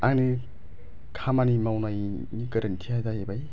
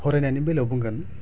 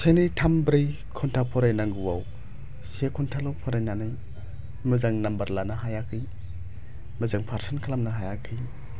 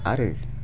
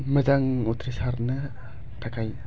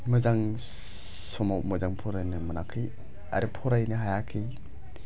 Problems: none marked